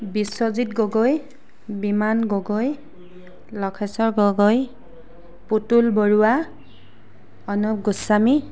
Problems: background sounds at intervals